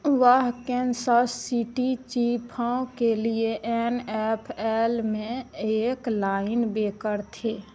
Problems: constant background noise